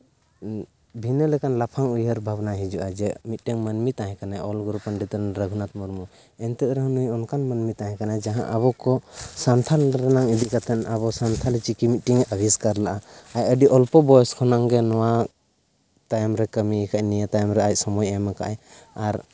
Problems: background sounds at intervals